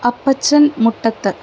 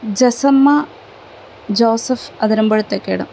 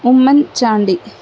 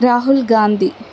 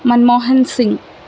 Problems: none marked